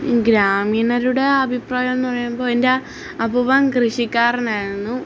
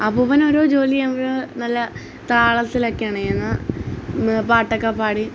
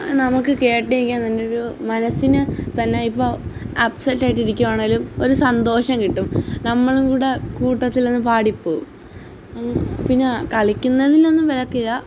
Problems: none marked